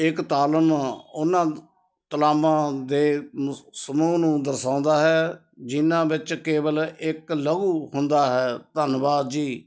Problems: constant background noise